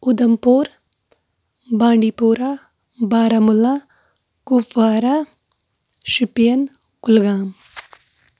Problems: none marked